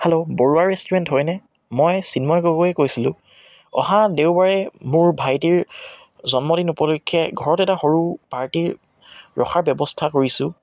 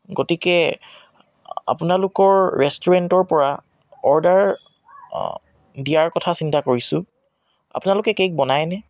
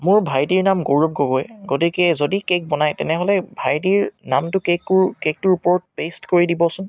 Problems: none marked